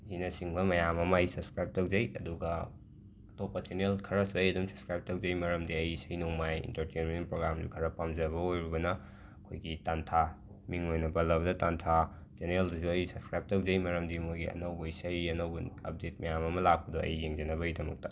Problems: background sounds at intervals